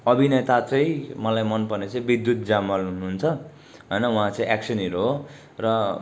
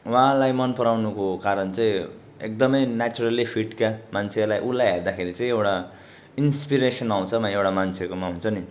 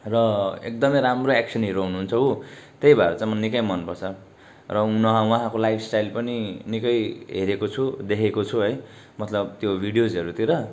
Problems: background sounds at intervals